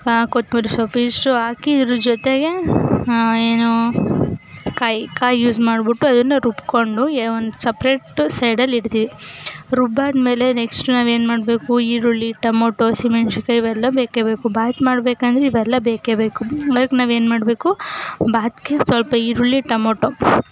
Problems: none marked